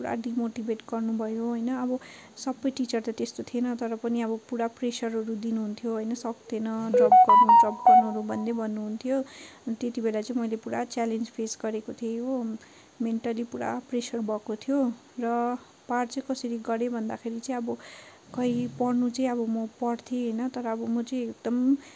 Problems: constant background noise, continuous background conversations